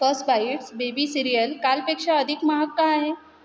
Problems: constant background noise